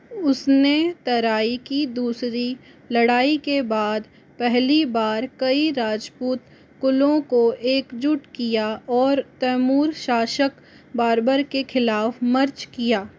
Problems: constant background noise